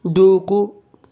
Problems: none marked